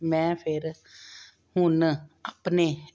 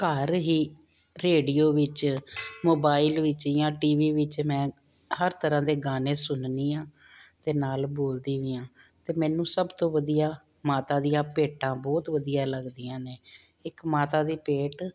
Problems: background sounds at intervals